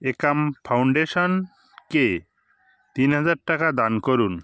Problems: background sounds at intervals